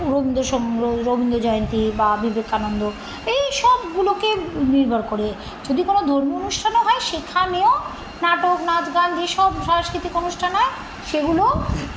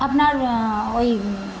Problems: constant background noise